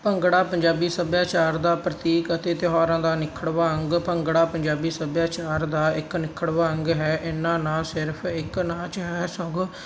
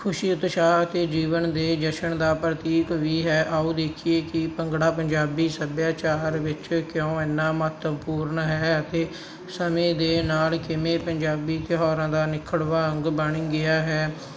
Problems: constant background noise